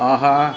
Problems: background sounds at intervals